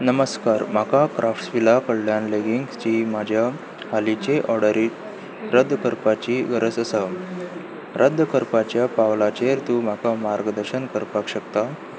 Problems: constant background noise